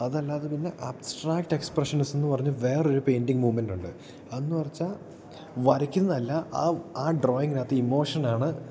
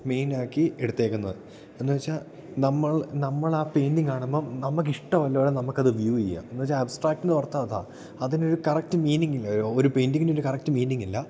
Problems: none marked